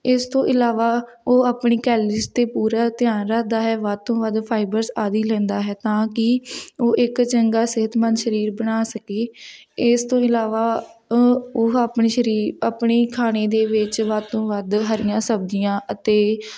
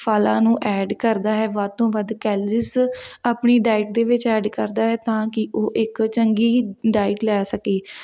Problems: background sounds at intervals